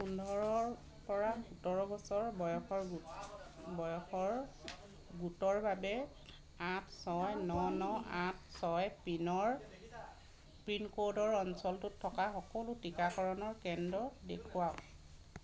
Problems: continuous background conversations